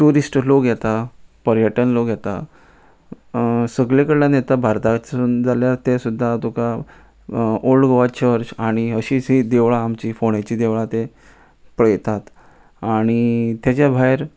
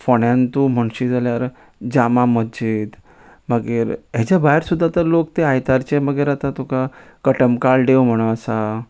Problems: constant background noise